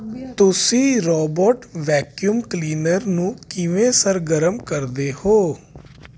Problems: none marked